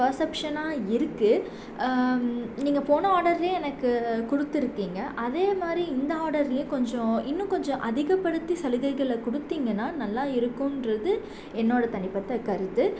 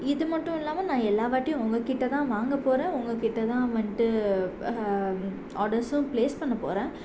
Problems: none marked